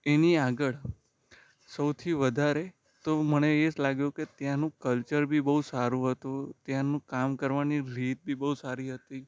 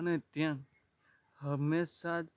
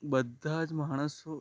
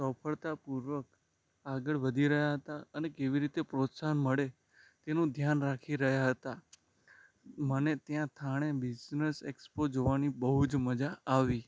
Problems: none marked